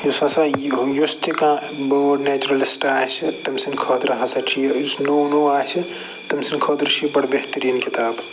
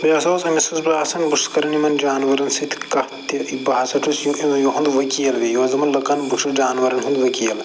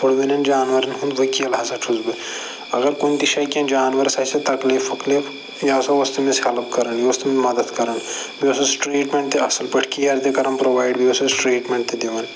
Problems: constant background noise